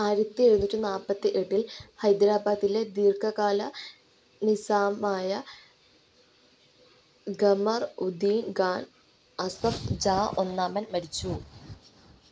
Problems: none marked